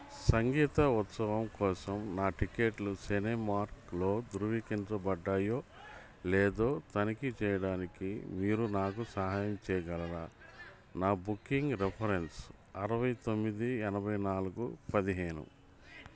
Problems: background sounds at intervals